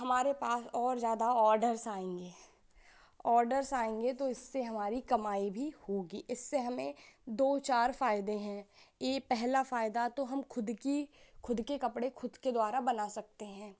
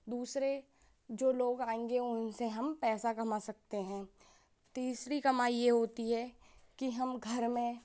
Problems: constant background noise